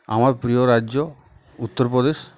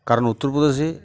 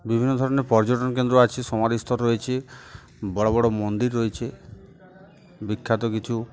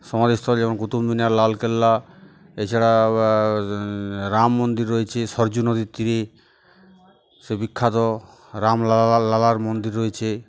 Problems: constant background noise, continuous background conversations